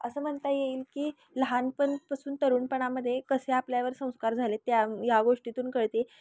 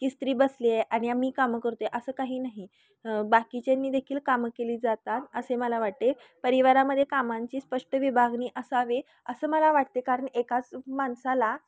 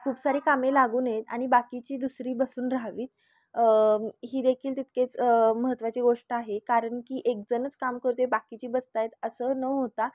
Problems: constant background noise, background conversations at intervals